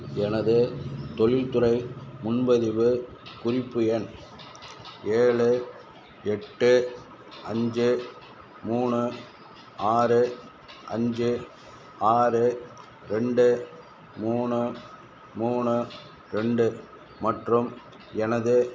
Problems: constant background noise